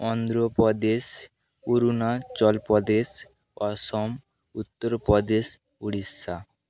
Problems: none marked